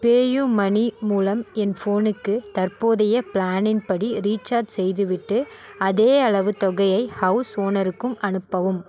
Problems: continuous background conversations